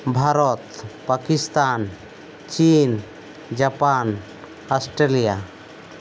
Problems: none marked